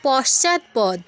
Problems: constant background noise